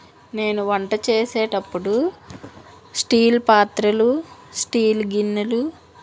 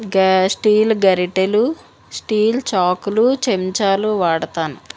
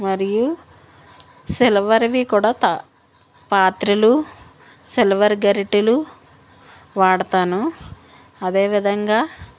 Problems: constant background noise